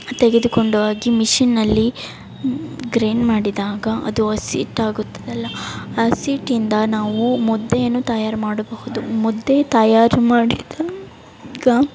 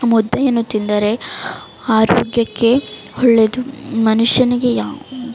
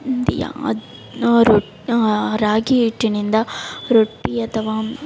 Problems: background sounds at intervals